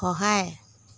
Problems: none marked